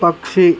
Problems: constant background noise